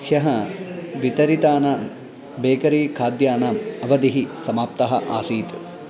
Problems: constant background noise